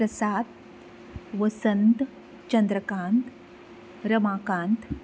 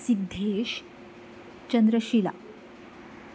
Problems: none marked